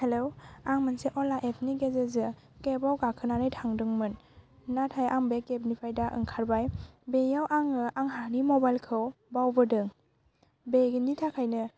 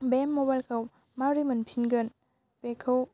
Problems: constant background noise